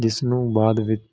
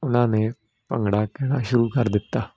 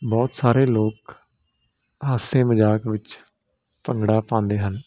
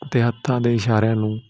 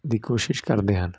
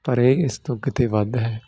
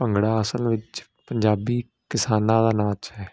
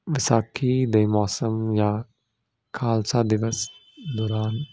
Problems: none marked